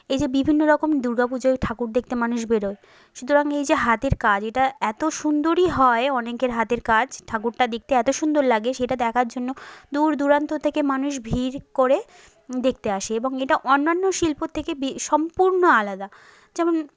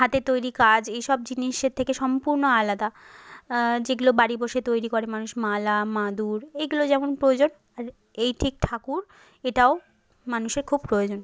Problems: background sounds at intervals